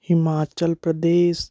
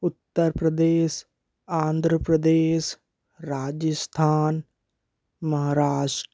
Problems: none marked